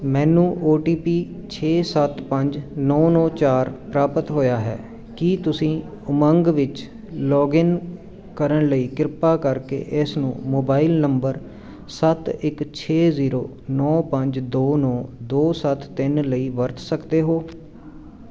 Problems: none marked